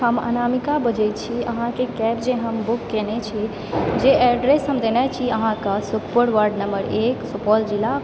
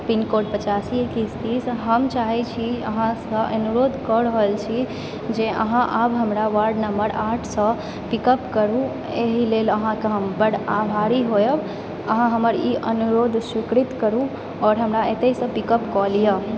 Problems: constant background noise